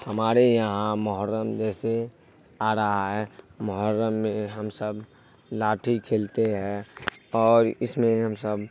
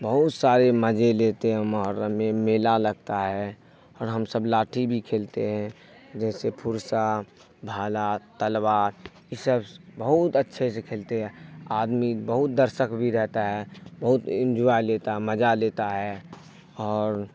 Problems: constant background noise